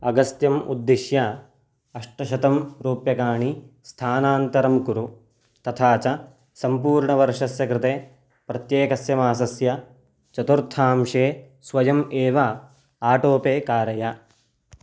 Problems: none marked